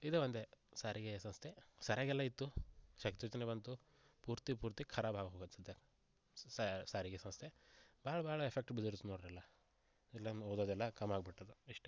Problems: low volume